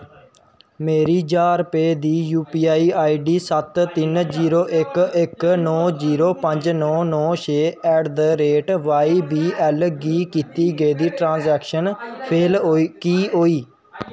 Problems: constant background noise